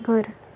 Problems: none marked